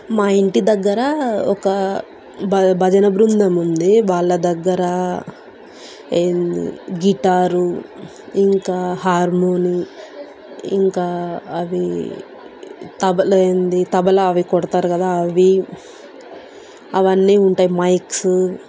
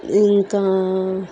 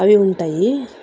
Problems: constant background noise